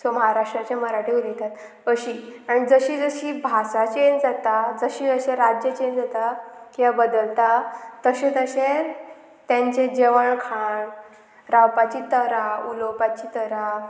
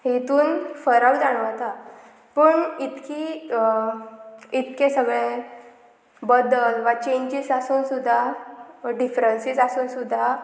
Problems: constant background noise